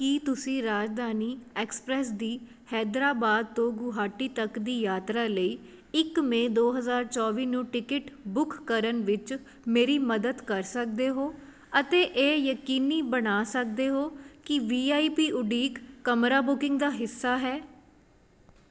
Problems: none marked